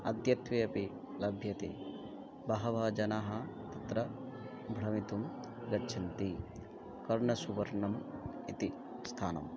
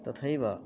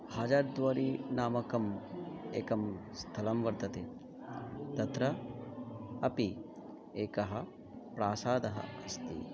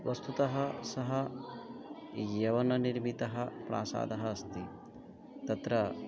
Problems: continuous background conversations